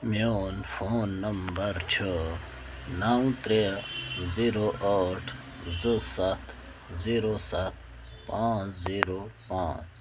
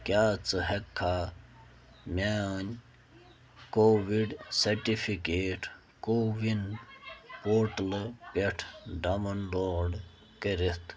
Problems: constant background noise